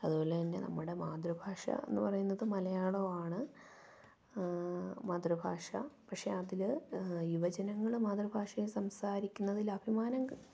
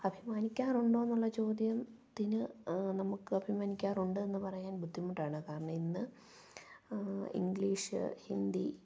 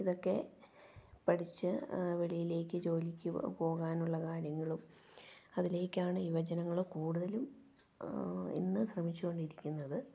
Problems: low volume